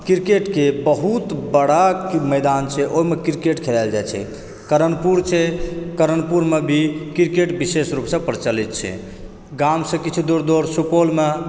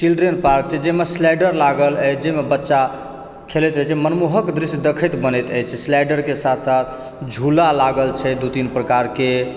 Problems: background sounds at intervals